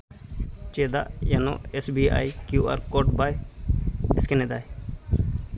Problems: constant background noise